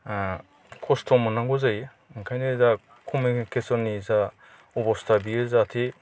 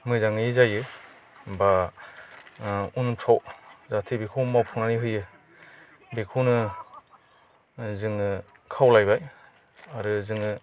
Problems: none marked